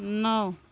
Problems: none marked